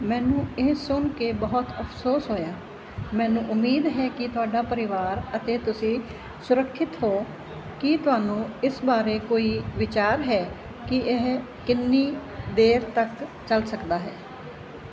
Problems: constant background noise